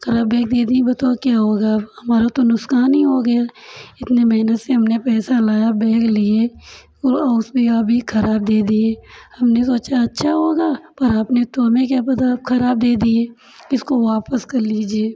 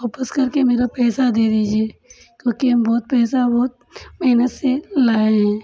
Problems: none marked